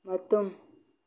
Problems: low volume